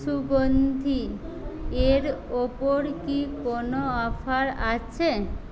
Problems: background conversations at intervals